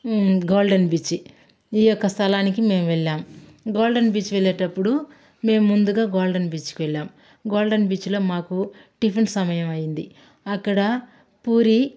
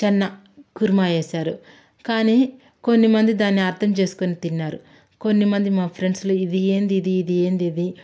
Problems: background sounds at intervals